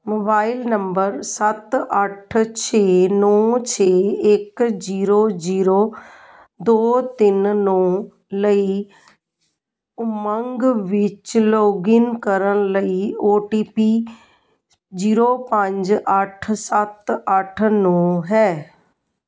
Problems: none marked